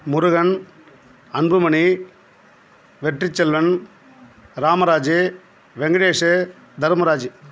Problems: none marked